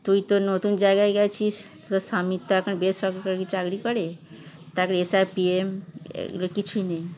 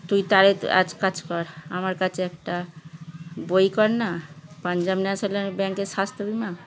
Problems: background sounds at intervals, continuous background conversations